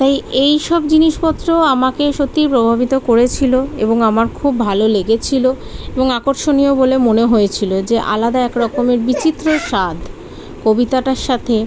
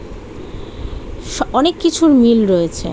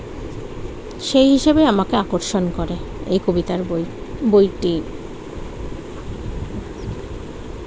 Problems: constant background noise, background conversations at intervals